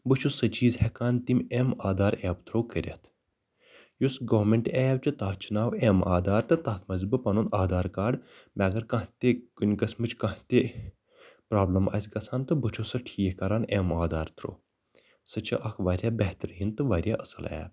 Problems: background sounds at intervals